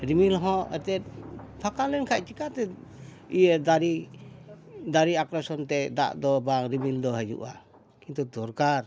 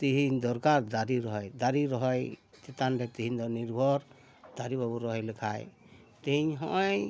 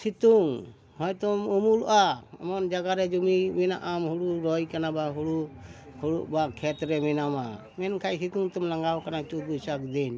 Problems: constant background noise, background conversations at intervals